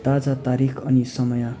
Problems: continuous background conversations